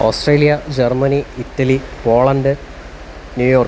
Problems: constant background noise